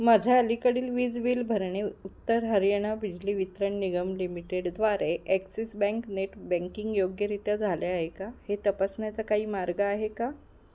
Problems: none marked